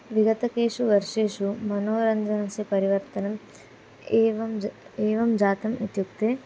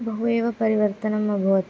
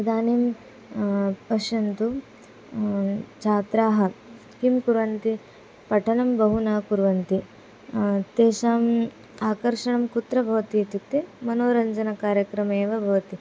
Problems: none marked